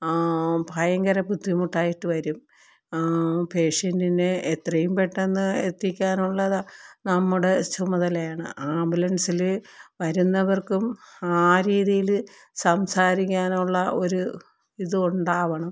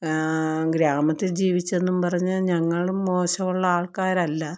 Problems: none marked